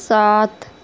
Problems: none marked